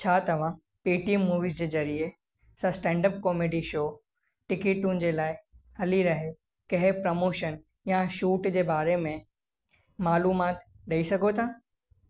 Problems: echo